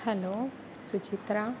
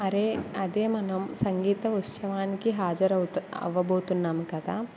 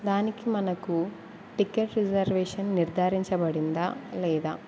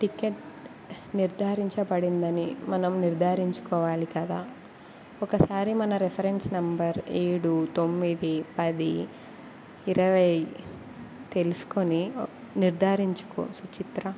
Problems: none marked